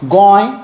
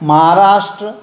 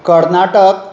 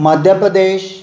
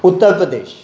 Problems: none marked